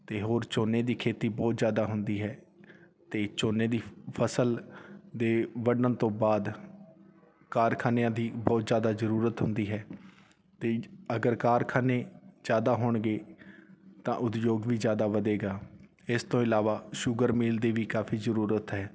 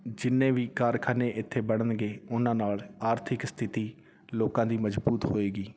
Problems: none marked